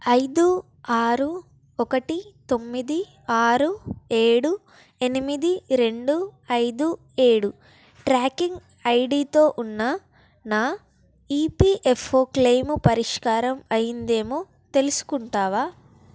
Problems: none marked